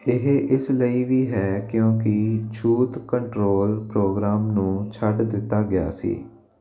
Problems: none marked